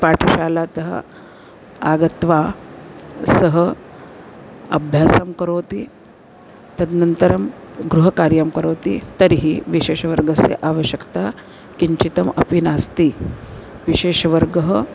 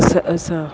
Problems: none marked